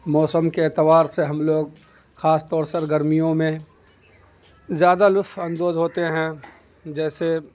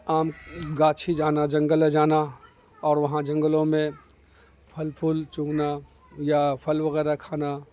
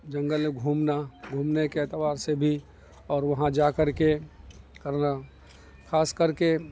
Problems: constant background noise